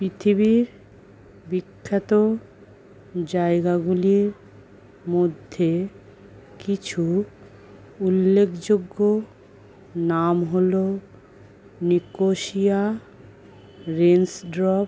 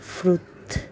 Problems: none marked